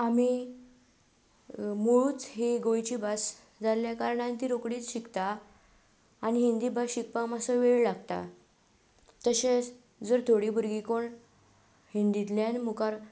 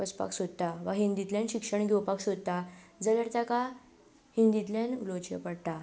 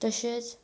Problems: none marked